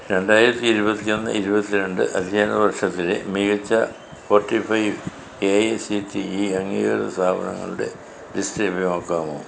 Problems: constant background noise